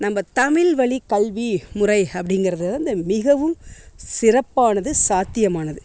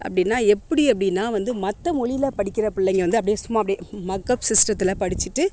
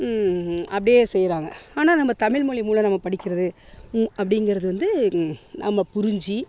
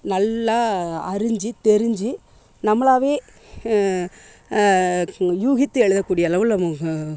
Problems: constant background noise